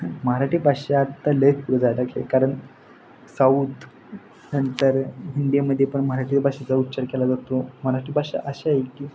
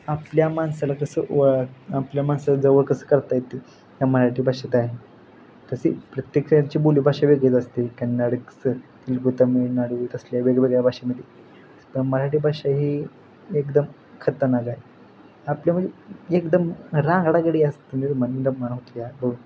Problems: none marked